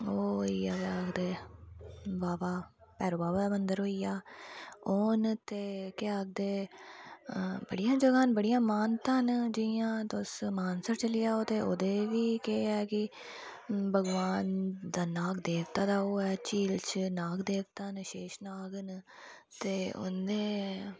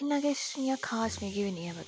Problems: background sounds at intervals